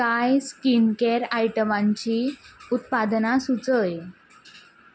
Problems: none marked